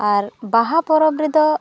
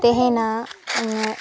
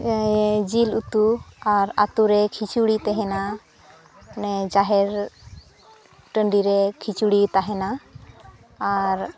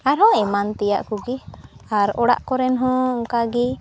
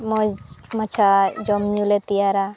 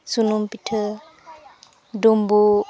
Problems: continuous background conversations